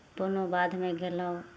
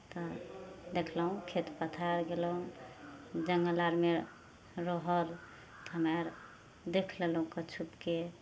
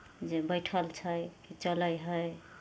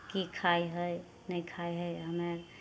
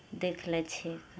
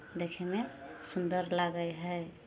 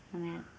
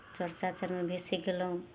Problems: none marked